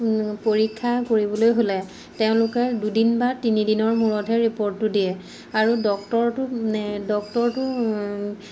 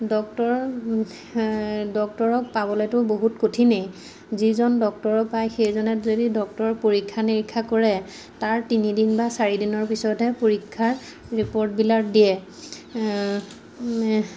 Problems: background sounds at intervals